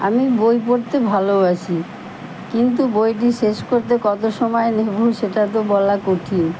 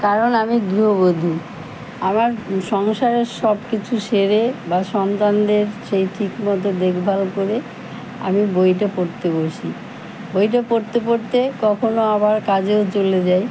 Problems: none marked